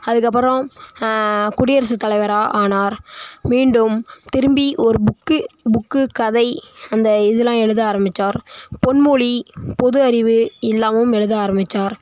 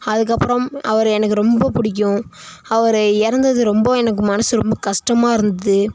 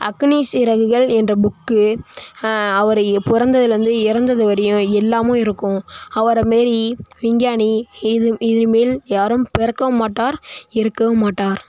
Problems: constant background noise